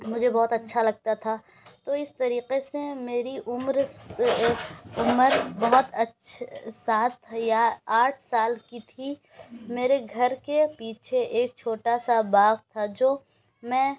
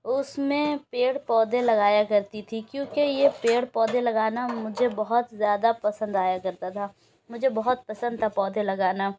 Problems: constant background noise